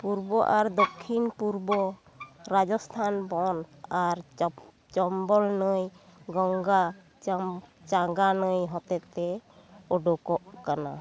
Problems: background sounds at intervals, continuous background conversations